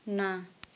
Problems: none marked